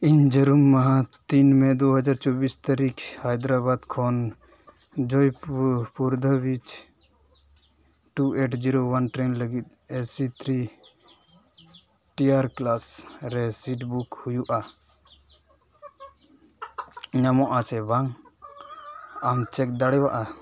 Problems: background sounds at intervals